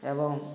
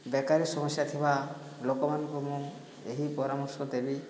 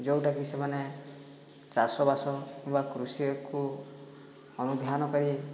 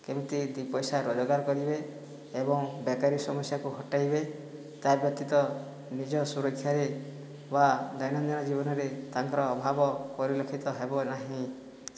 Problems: low volume